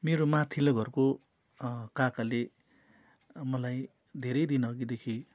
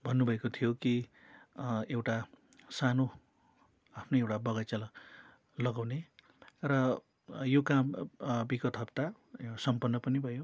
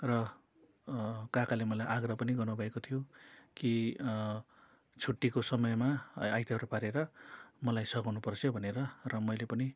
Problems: constant background noise